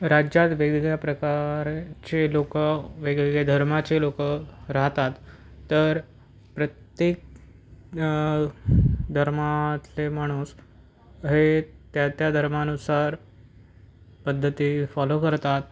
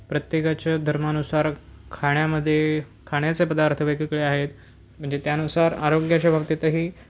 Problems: none marked